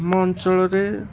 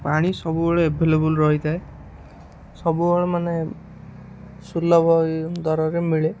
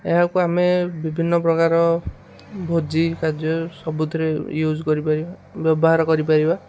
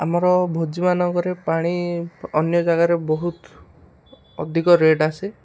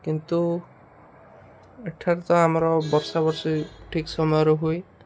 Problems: none marked